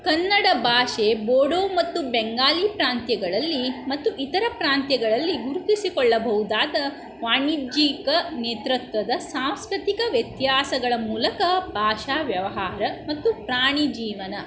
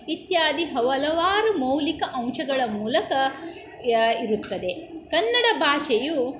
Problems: background sounds at intervals